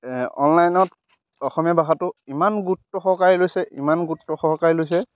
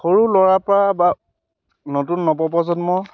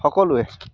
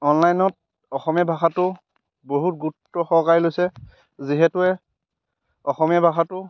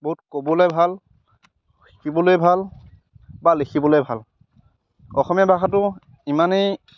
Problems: background sounds at intervals